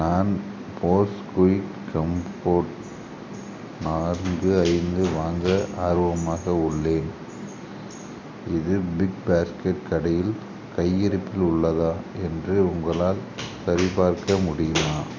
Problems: constant background noise